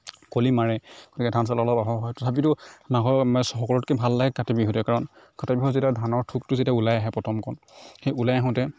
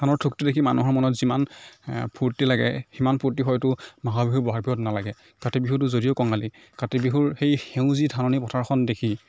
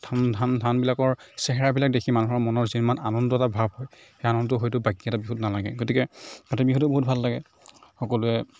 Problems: none marked